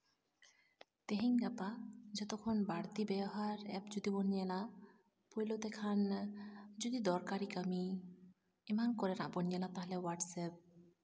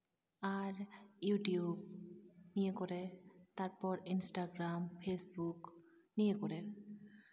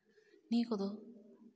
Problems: constant background noise